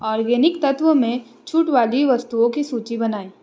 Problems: constant background noise